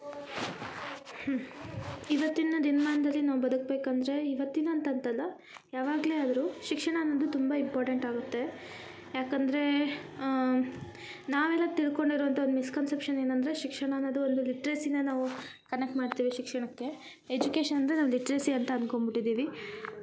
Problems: none marked